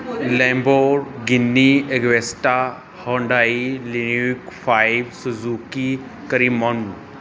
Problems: none marked